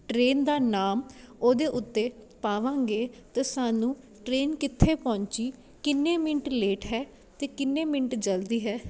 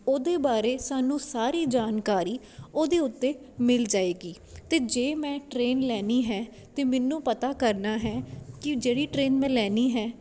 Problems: none marked